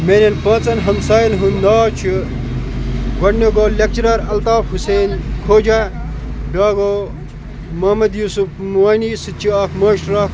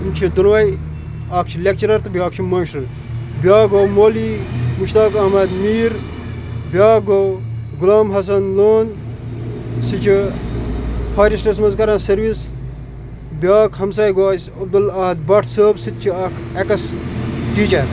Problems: constant background noise